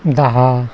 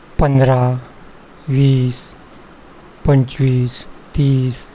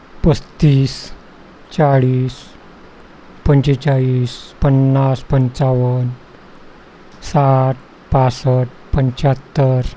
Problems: constant background noise